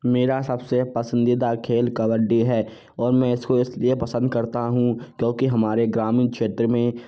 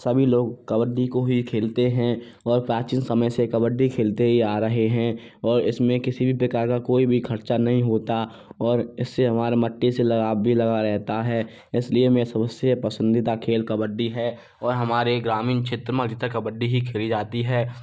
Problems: none marked